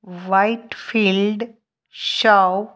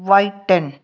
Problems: none marked